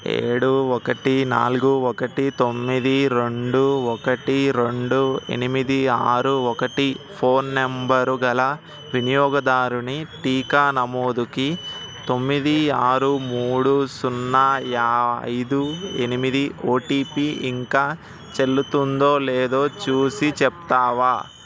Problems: constant background noise